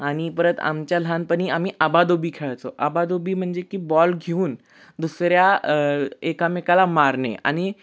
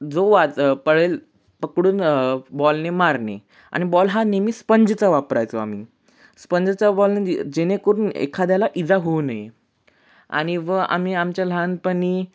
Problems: constant background noise